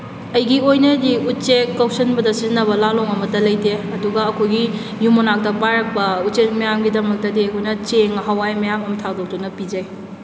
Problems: none marked